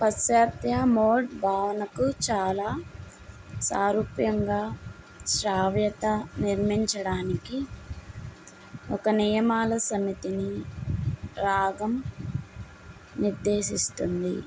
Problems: constant background noise